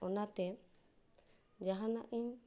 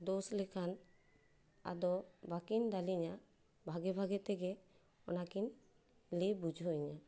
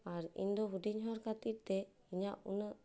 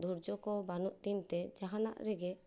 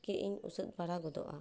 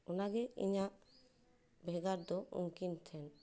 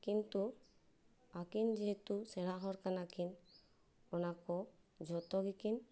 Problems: none marked